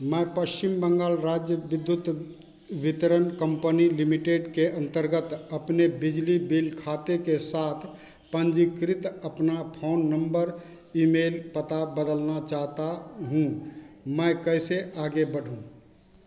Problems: constant background noise